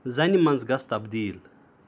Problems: background sounds at intervals